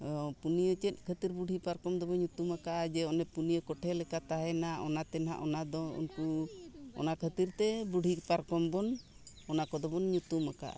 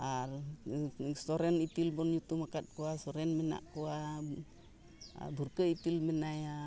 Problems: background conversations at intervals